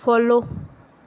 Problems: background conversations at intervals